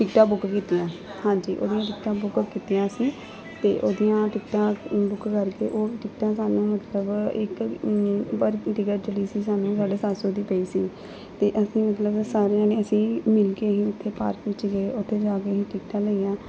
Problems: constant background noise, continuous background conversations